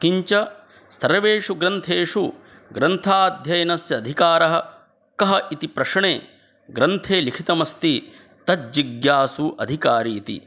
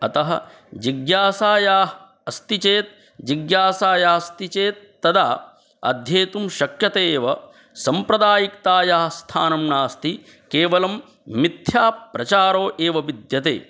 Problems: none marked